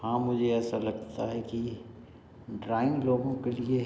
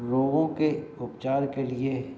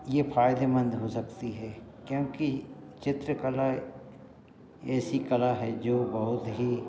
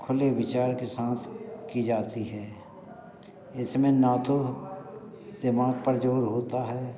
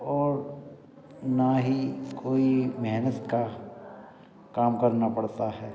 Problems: constant background noise, continuous background conversations